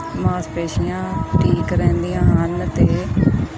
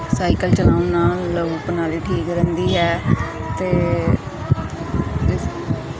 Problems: none marked